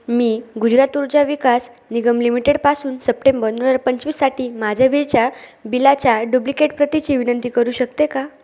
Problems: none marked